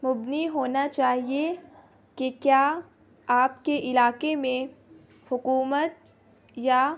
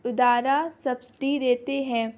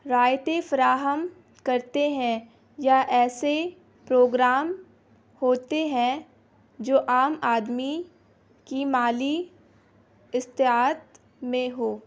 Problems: constant background noise